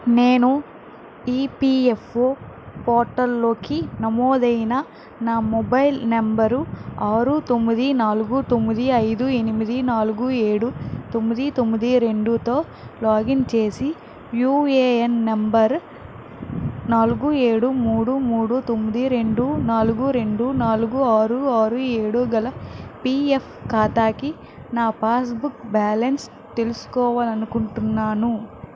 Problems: constant background noise